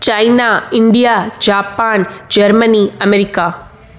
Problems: constant background noise